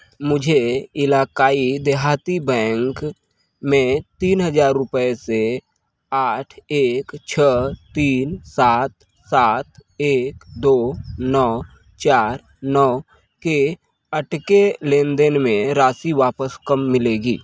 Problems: none marked